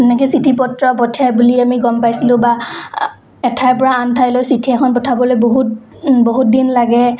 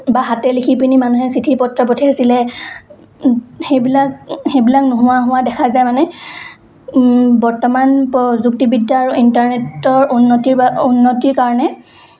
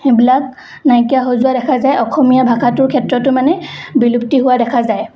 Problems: constant background noise, background conversations at intervals